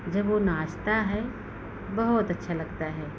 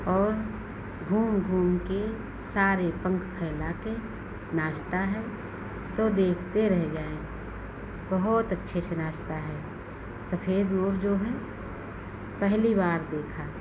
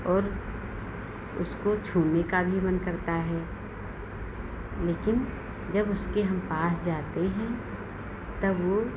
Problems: none marked